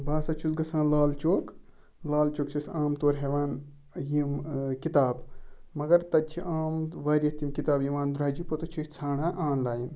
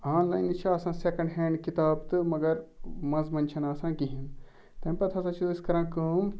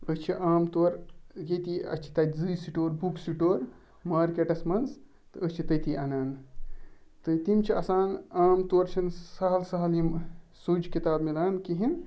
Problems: none marked